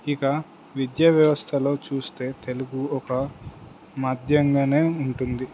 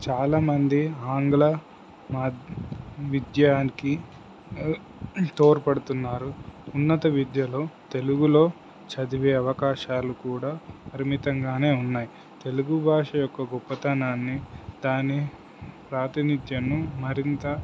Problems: constant background noise